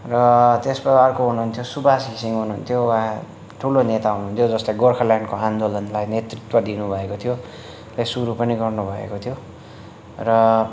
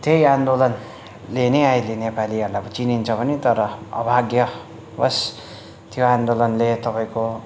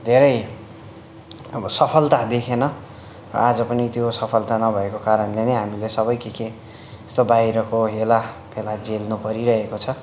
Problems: none marked